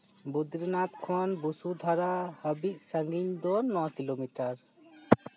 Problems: background sounds at intervals